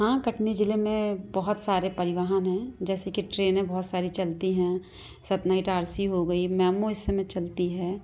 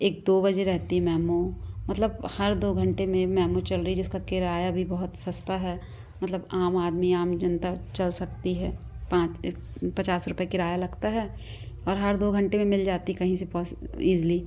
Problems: background sounds at intervals, background conversations at intervals